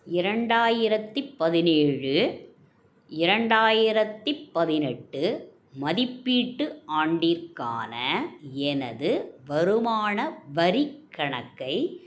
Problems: none marked